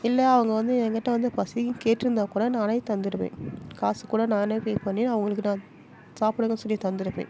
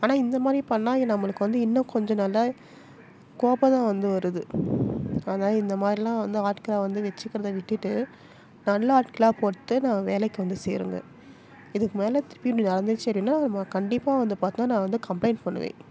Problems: constant background noise, background conversations at intervals